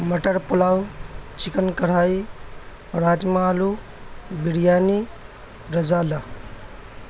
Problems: constant background noise